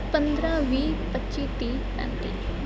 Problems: none marked